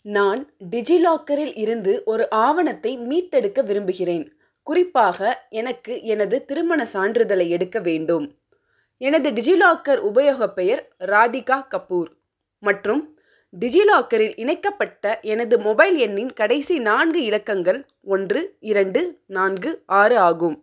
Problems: none marked